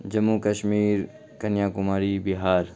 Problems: constant background noise